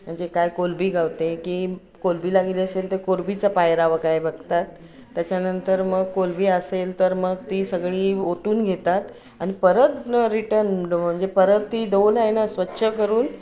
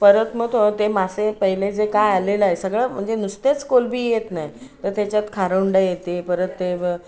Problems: constant background noise, continuous background conversations